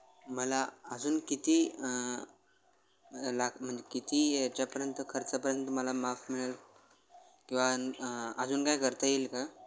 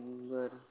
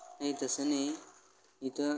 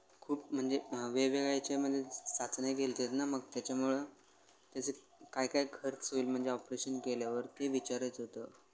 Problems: constant background noise